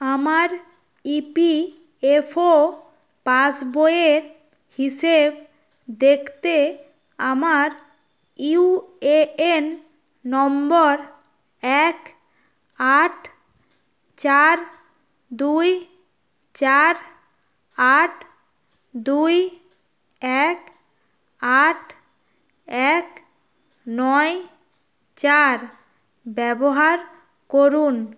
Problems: none marked